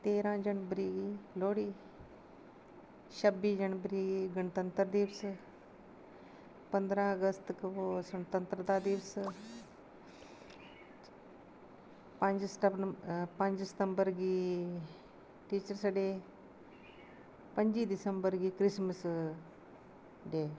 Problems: constant background noise